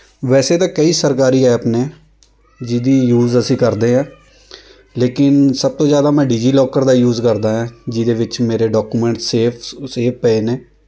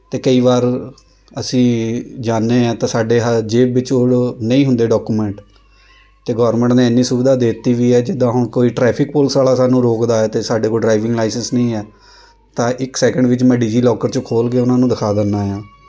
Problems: constant background noise